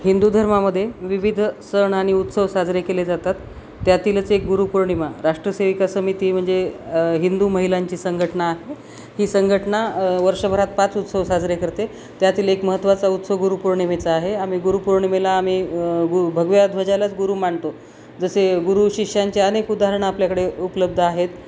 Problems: constant background noise